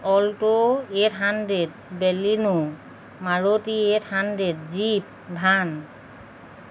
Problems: background sounds at intervals